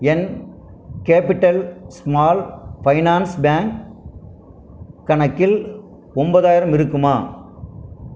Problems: none marked